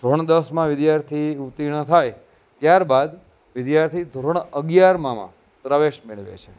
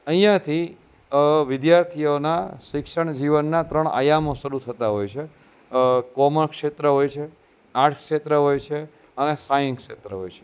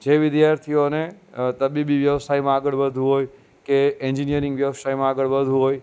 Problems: constant background noise